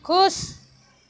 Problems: constant background noise, echo